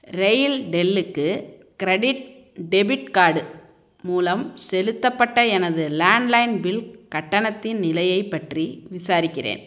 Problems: none marked